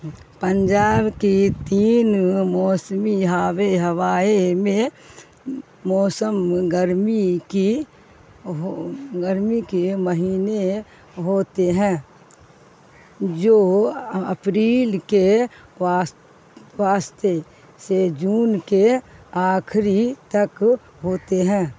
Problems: constant background noise